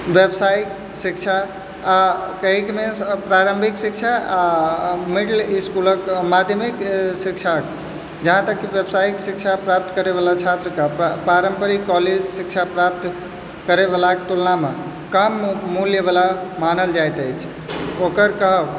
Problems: background sounds at intervals, background conversations at intervals